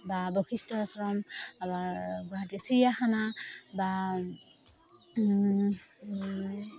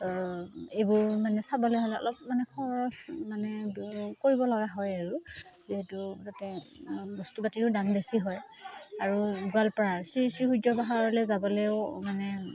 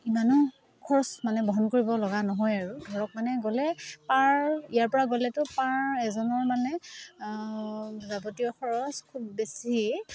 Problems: none marked